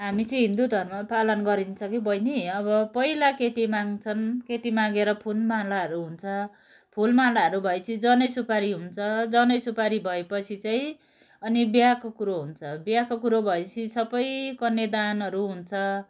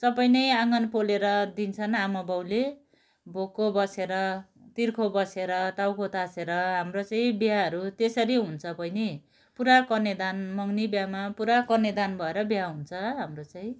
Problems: none marked